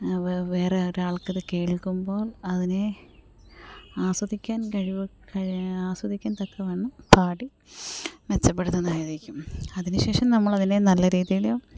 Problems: background sounds at intervals, low volume